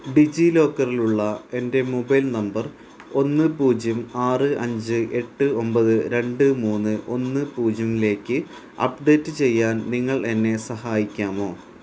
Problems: constant background noise